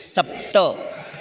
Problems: background sounds at intervals